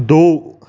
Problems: none marked